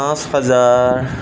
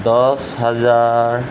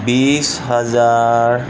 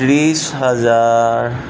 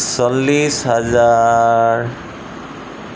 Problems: constant background noise